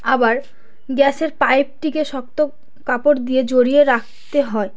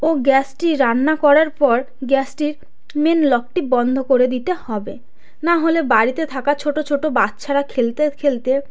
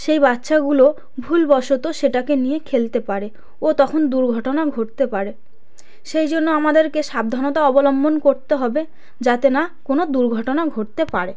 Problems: constant background noise